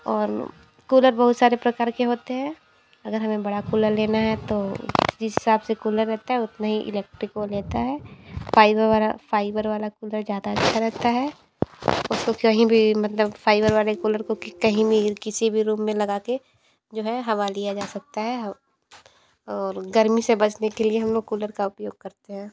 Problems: constant background noise, background conversations at intervals